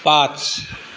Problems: constant background noise, background conversations at intervals